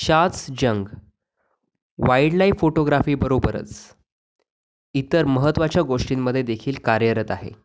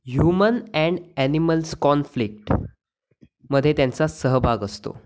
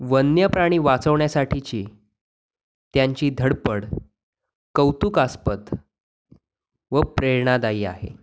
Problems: background sounds at intervals